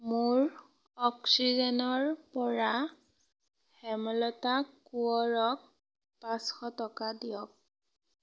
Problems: none marked